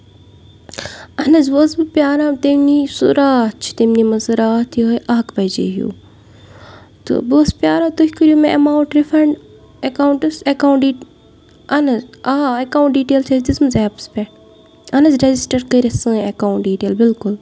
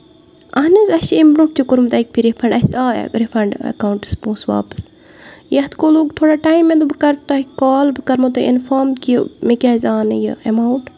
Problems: constant background noise